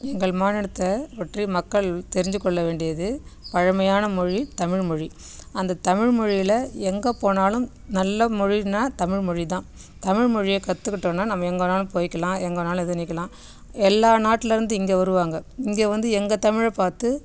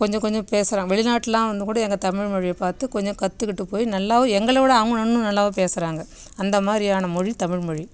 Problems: none marked